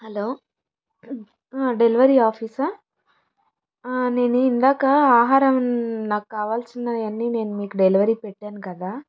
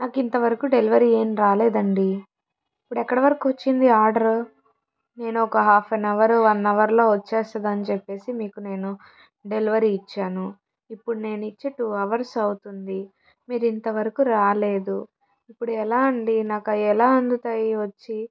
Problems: background sounds at intervals